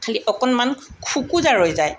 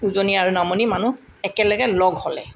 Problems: none marked